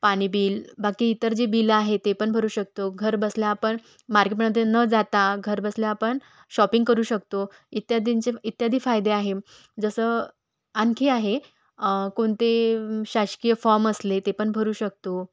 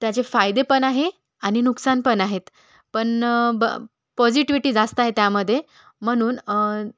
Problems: background sounds at intervals